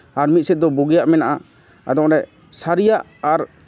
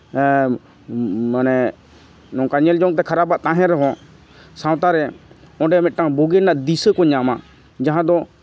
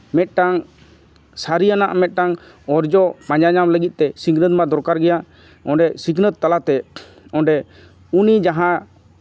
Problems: constant background noise, background conversations at intervals